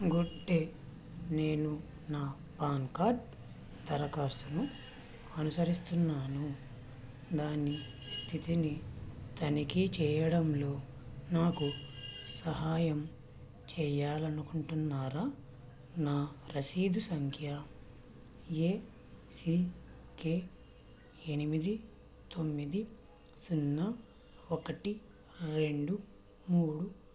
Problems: constant background noise